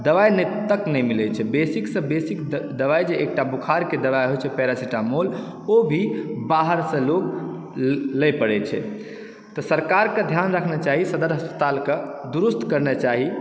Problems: background sounds at intervals, background conversations at intervals